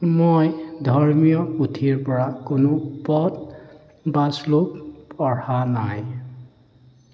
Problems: background sounds at intervals